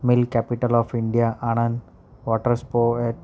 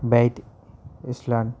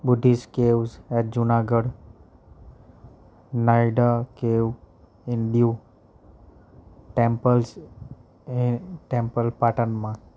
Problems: none marked